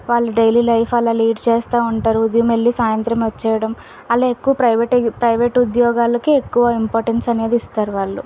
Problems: none marked